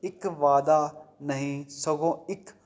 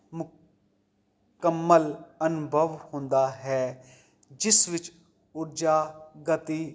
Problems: none marked